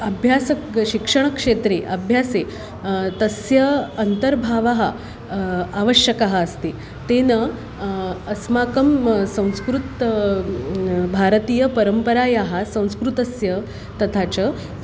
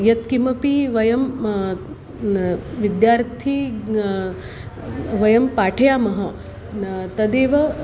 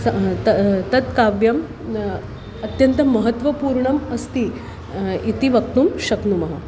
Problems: constant background noise